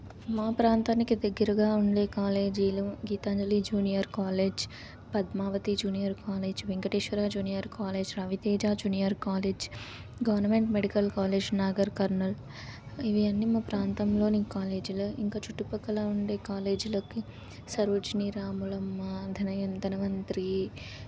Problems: none marked